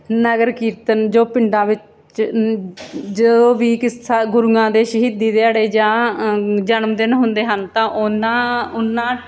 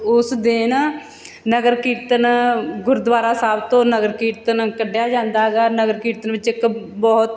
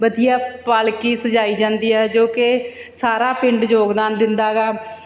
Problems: background sounds at intervals